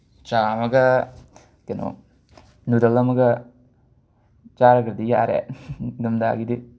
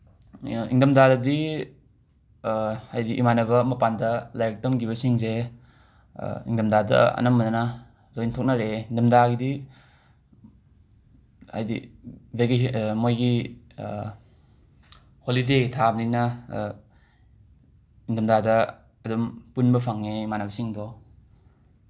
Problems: background sounds at intervals